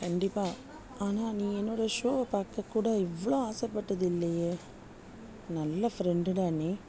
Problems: background sounds at intervals, low volume